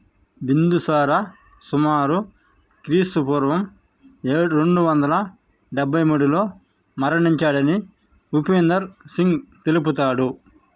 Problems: constant background noise